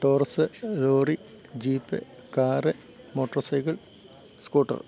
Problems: low volume